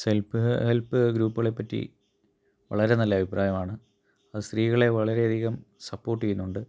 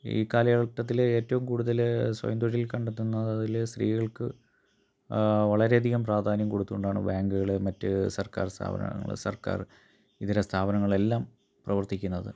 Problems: none marked